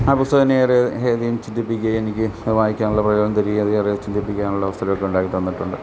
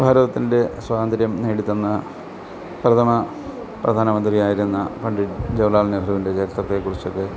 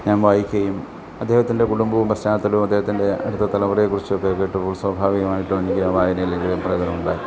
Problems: none marked